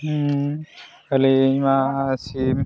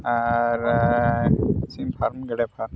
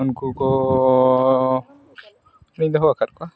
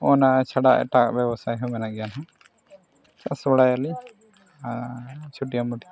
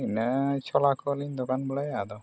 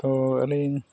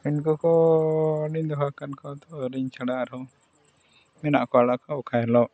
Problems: background sounds at intervals, background conversations at intervals